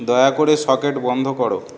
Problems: none marked